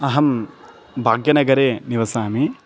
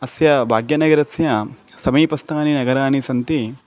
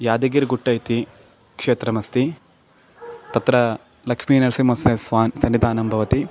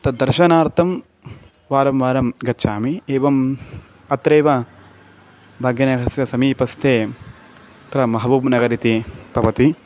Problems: background sounds at intervals